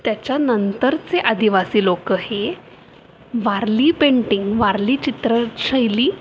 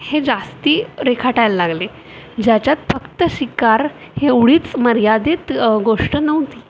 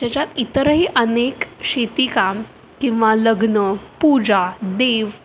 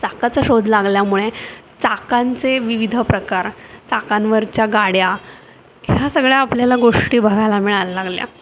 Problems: constant background noise, background conversations at intervals